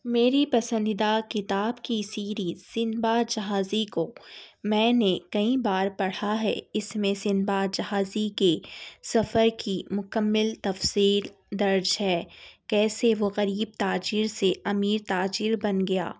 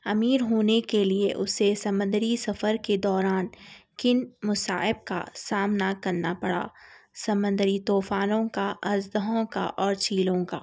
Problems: none marked